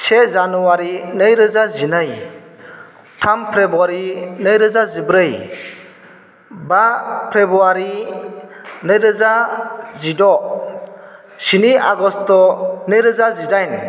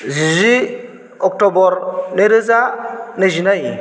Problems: constant background noise